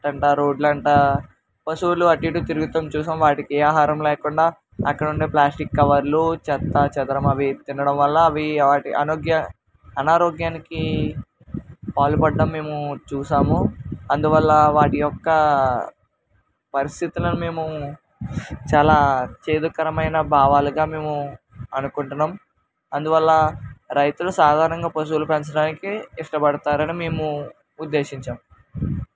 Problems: constant background noise